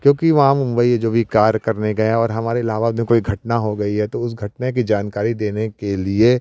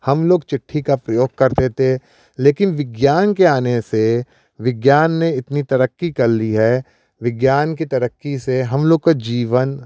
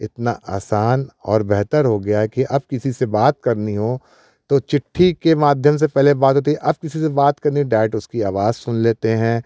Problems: none marked